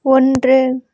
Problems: none marked